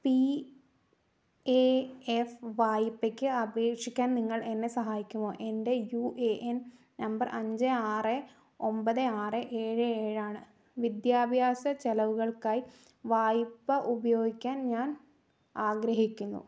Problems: none marked